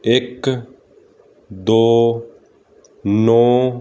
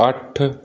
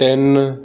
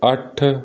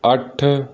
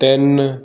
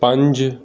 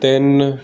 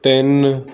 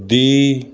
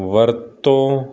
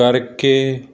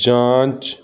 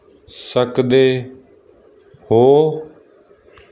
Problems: background sounds at intervals